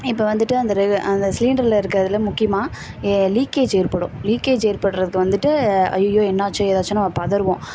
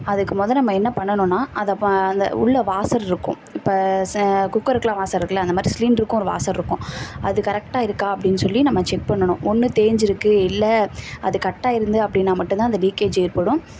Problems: none marked